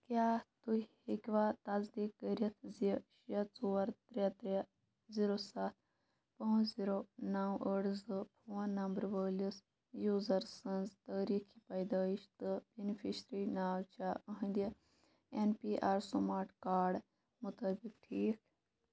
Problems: none marked